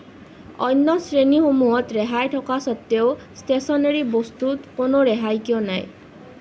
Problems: none marked